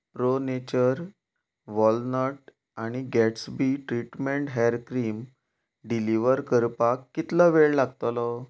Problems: background sounds at intervals